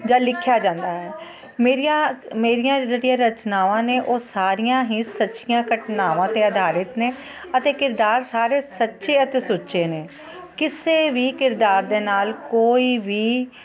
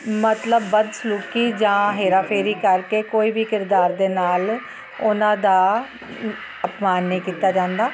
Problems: constant background noise